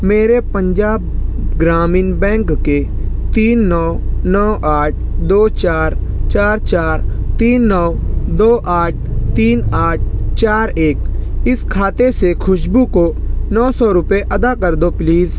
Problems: constant background noise